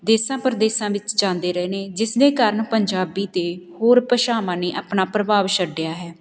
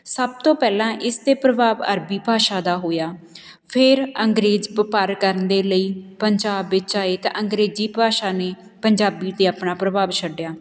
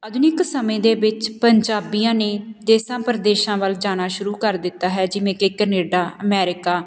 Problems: background sounds at intervals